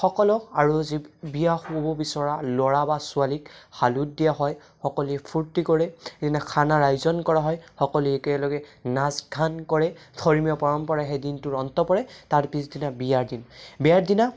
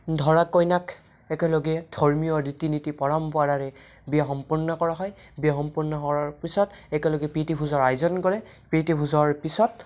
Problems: none marked